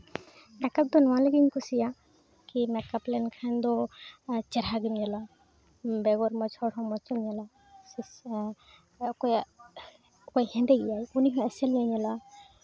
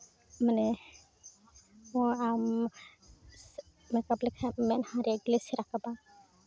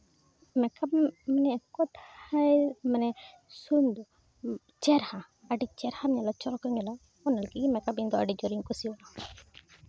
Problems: none marked